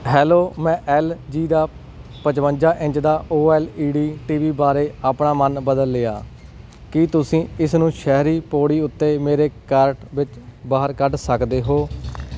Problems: background sounds at intervals